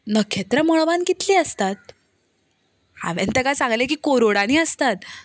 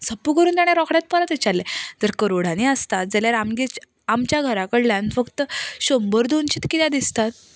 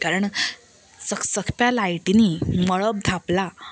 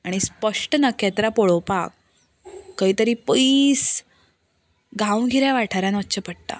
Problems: none marked